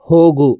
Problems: none marked